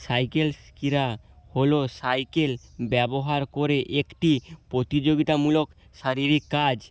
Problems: none marked